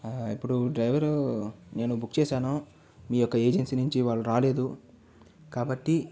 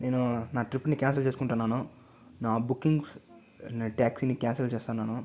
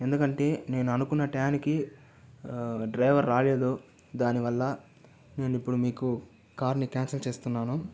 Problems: none marked